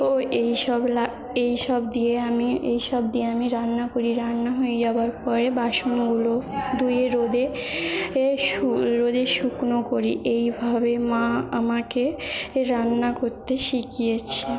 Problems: background sounds at intervals, background conversations at intervals